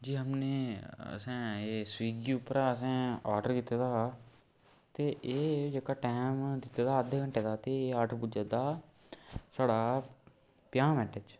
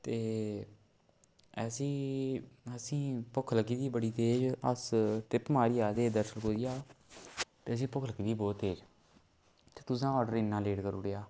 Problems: background sounds at intervals